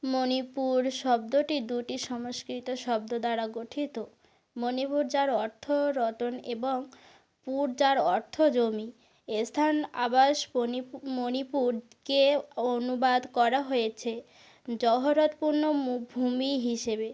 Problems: none marked